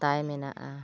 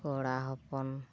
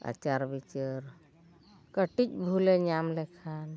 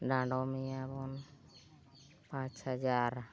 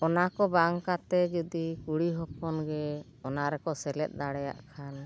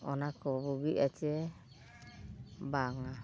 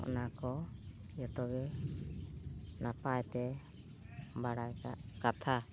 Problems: background sounds at intervals